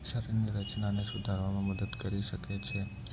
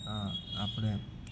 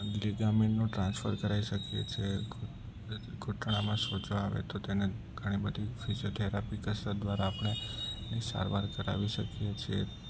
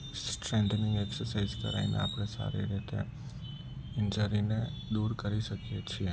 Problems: constant background noise, low volume